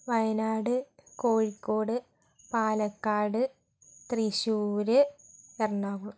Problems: background sounds at intervals, low volume